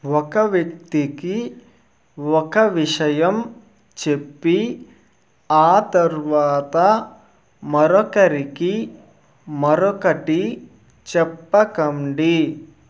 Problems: constant background noise